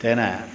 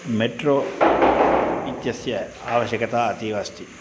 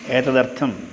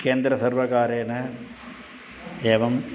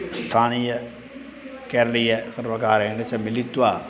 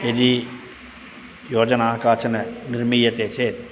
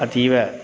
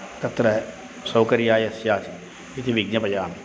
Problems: constant background noise